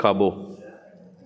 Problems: constant background noise, echo